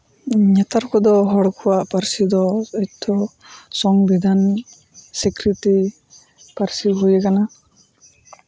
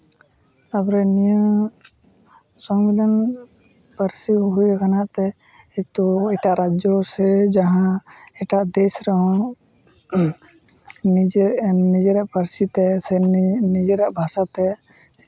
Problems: constant background noise